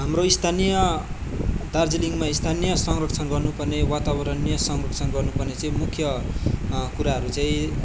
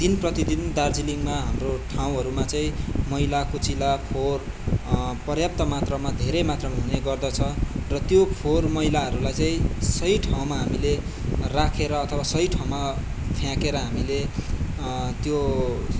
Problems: background sounds at intervals